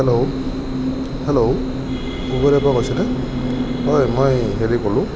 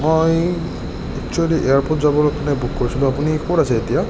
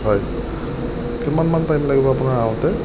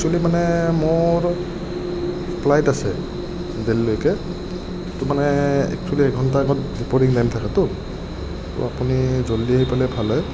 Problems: none marked